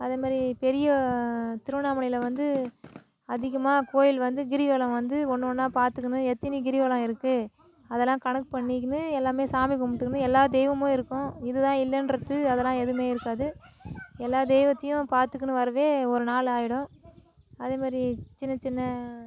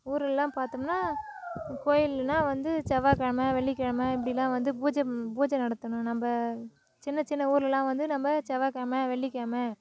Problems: continuous background conversations